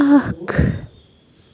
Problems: none marked